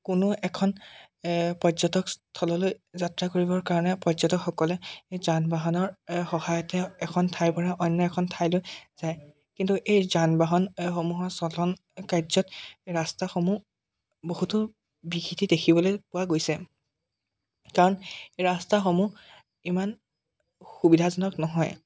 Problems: none marked